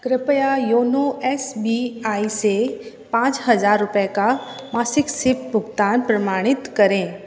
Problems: constant background noise